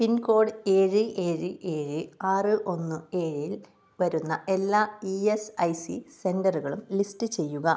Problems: none marked